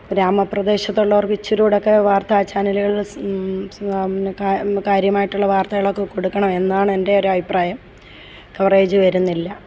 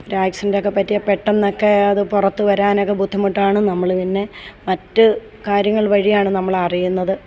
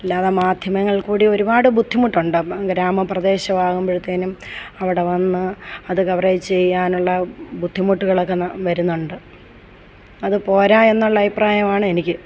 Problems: background sounds at intervals